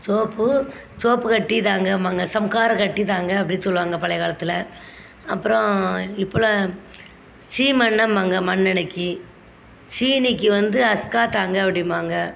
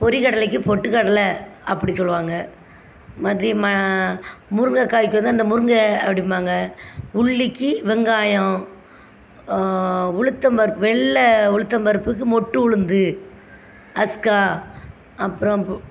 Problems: constant background noise